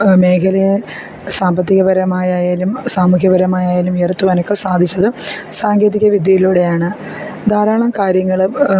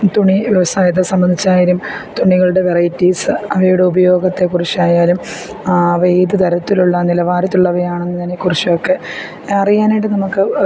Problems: constant background noise